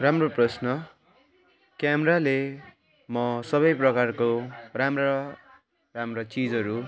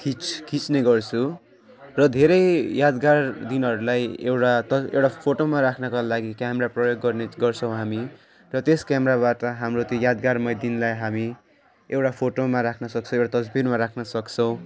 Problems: constant background noise, continuous background conversations